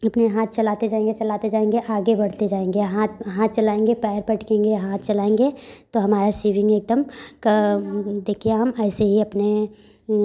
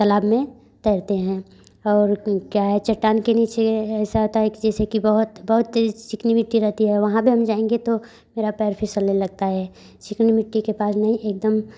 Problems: constant background noise